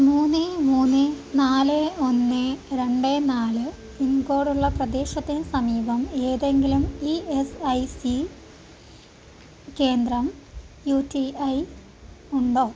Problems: constant background noise